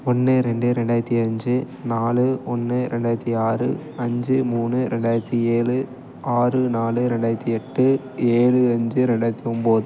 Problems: none marked